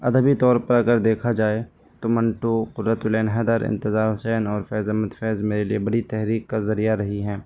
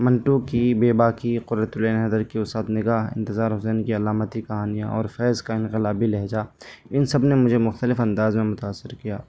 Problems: constant background noise